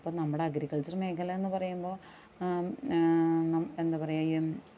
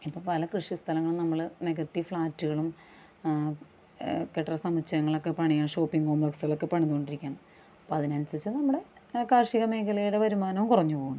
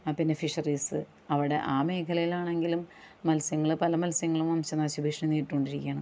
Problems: background conversations at intervals